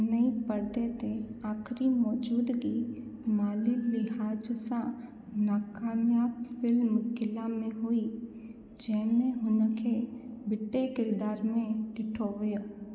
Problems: constant background noise, echo